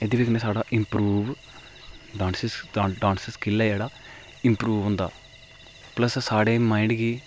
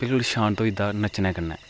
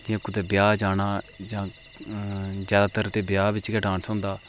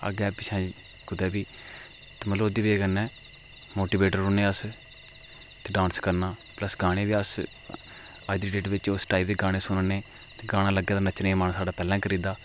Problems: constant background noise